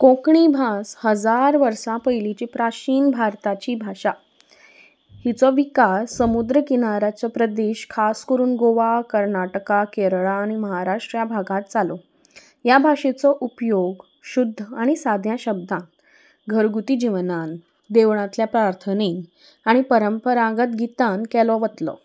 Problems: background sounds at intervals